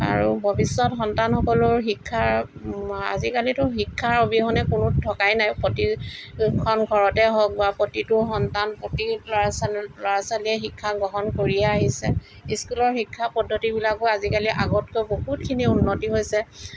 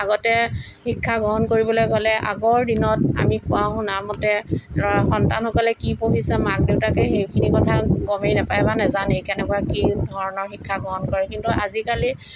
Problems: background sounds at intervals